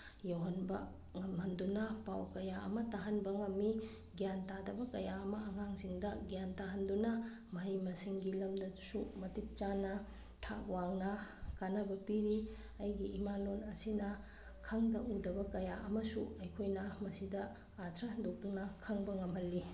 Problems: background sounds at intervals